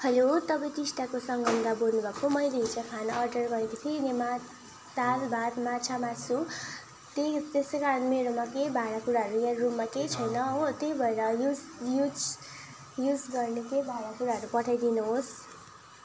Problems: constant background noise, background conversations at intervals